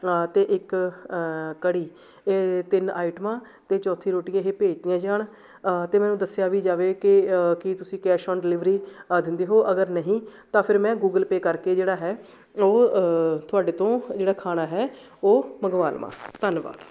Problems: background sounds at intervals